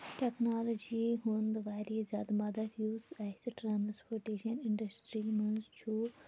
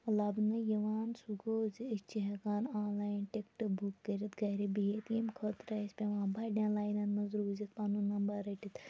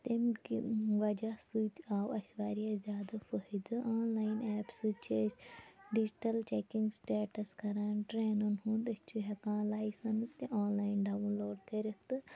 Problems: background sounds at intervals, background conversations at intervals, low volume